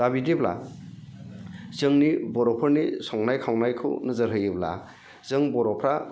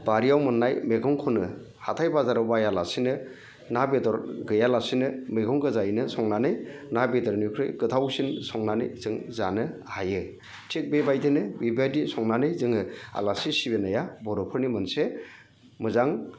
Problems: none marked